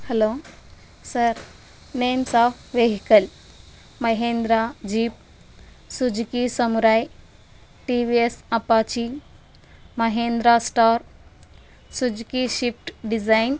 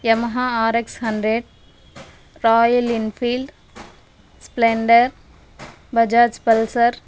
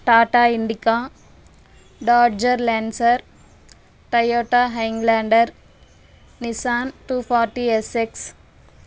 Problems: constant background noise